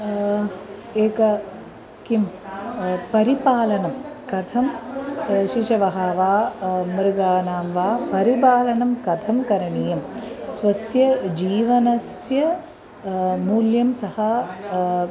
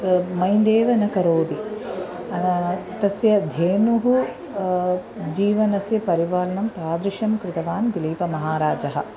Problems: background sounds at intervals